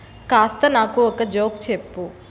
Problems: constant background noise